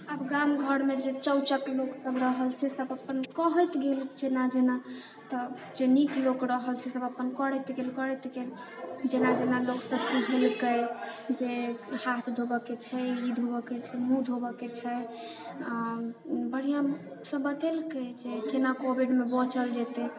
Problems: background sounds at intervals